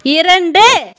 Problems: constant background noise